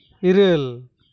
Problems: none marked